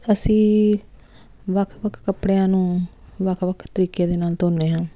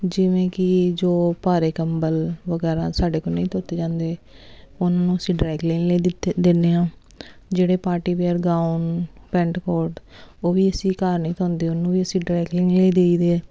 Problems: constant background noise